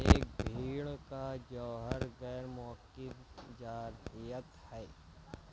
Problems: constant background noise, low volume